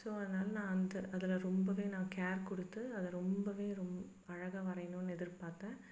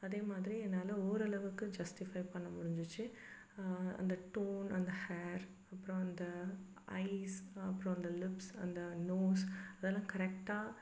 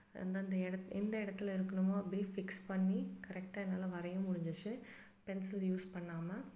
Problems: background sounds at intervals